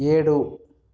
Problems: none marked